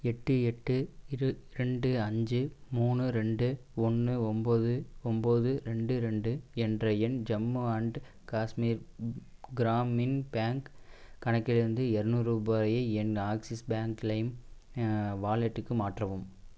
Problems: constant background noise